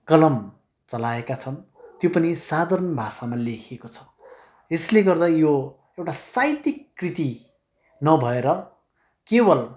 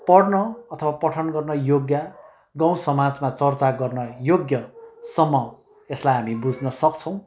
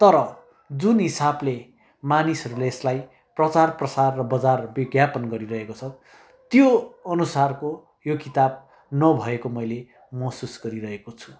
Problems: none marked